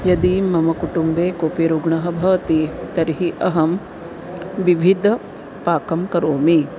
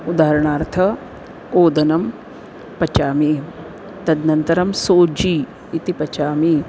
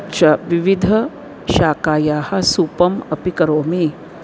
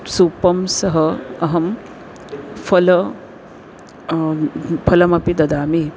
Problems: constant background noise